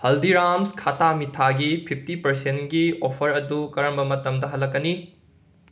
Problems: none marked